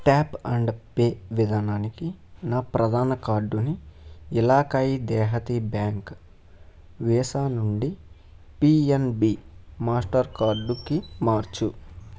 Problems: background sounds at intervals